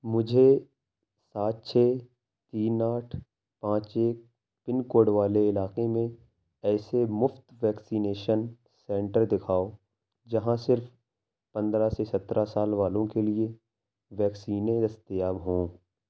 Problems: none marked